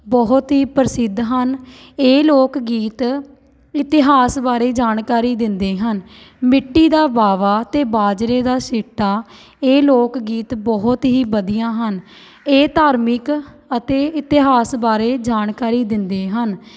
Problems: background sounds at intervals